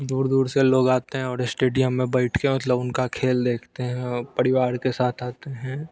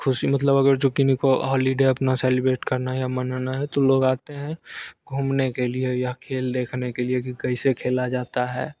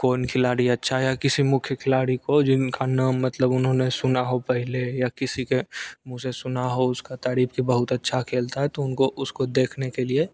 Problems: constant background noise